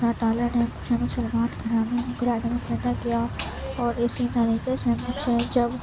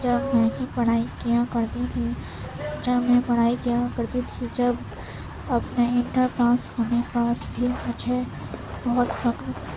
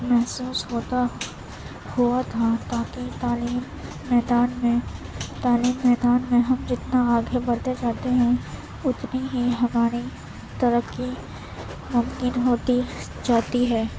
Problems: constant background noise, low volume